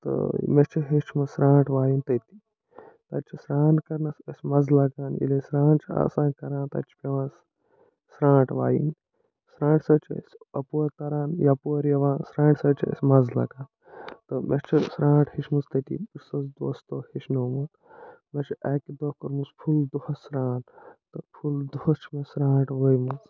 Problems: none marked